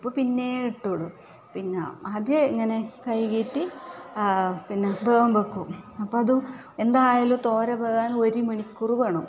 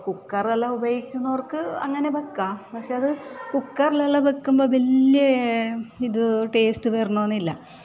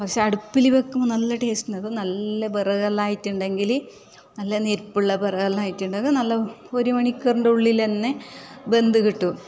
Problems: none marked